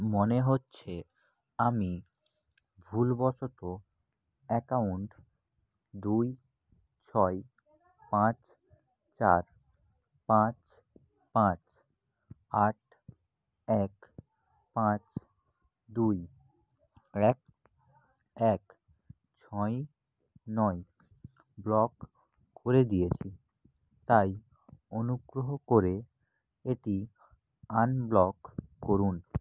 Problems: background conversations at intervals